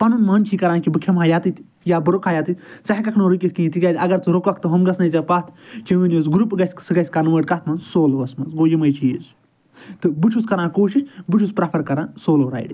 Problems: none marked